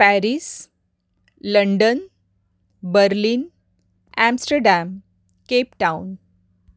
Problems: background sounds at intervals